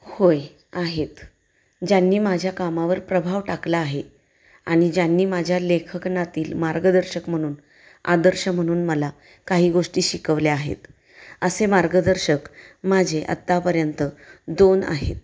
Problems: none marked